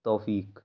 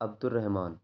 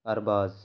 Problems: none marked